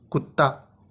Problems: none marked